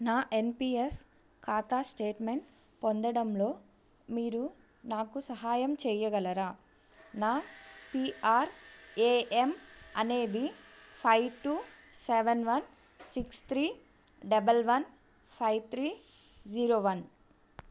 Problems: background sounds at intervals